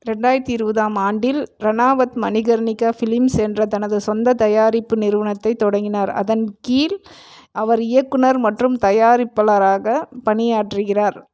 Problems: none marked